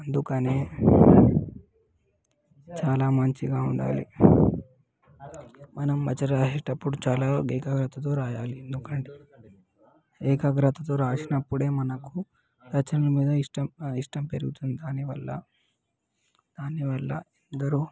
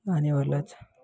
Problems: background sounds at intervals, background conversations at intervals